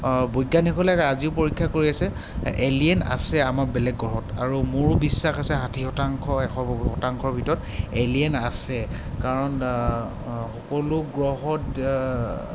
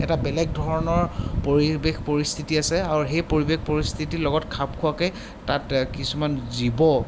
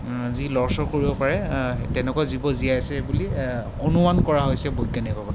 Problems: constant background noise